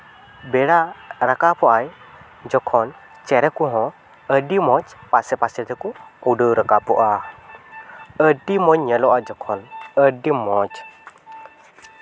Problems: background sounds at intervals, background conversations at intervals